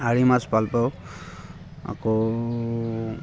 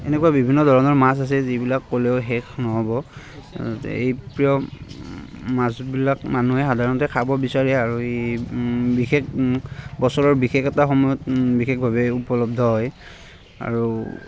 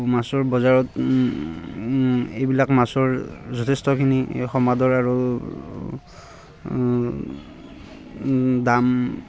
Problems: constant background noise, background conversations at intervals